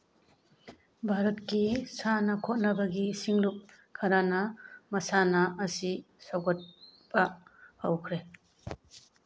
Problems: background sounds at intervals